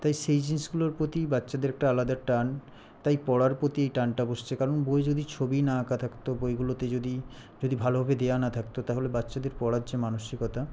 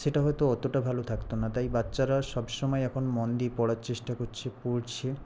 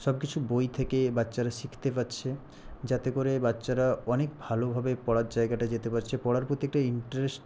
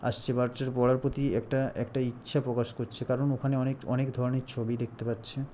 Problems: constant background noise